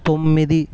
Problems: none marked